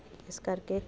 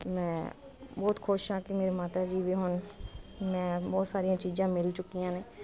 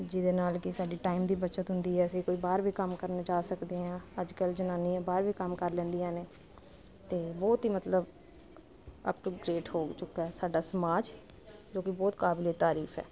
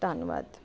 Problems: constant background noise